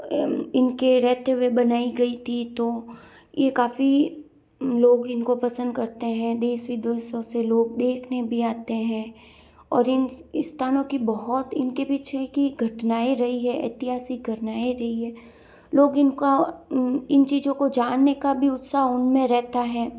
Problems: none marked